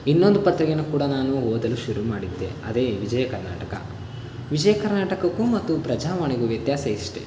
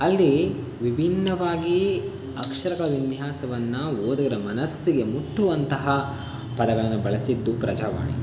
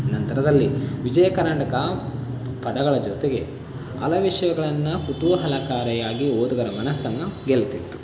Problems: constant background noise